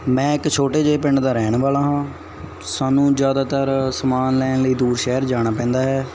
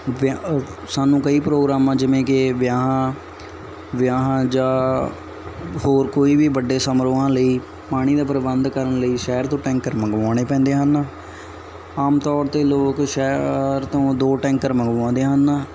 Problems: none marked